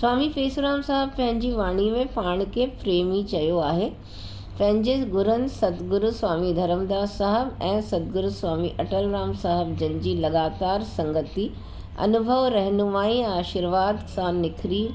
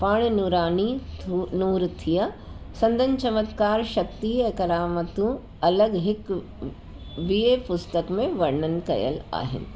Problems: constant background noise